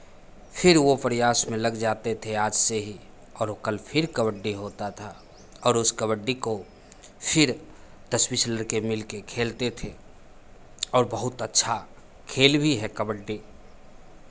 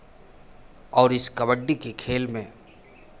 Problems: constant background noise, background conversations at intervals